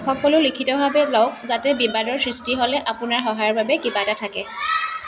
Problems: continuous background conversations